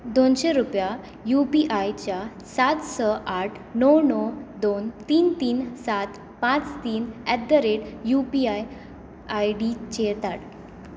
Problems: none marked